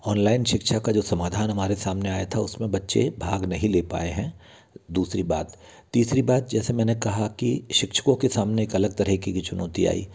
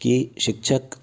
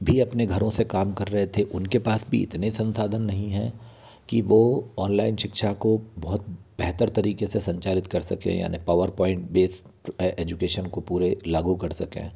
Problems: background sounds at intervals